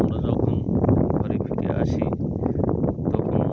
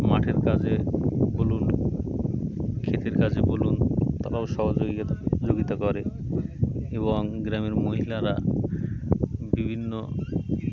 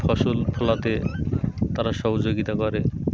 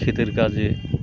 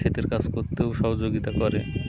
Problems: constant background noise, background conversations at intervals